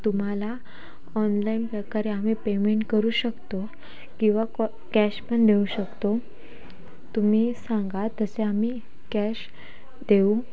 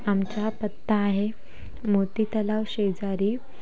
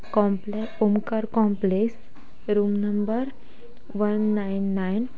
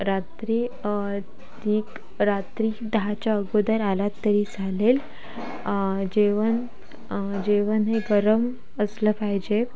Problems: none marked